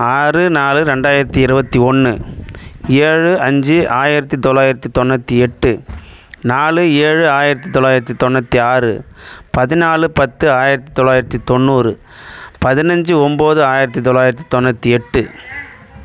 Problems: background sounds at intervals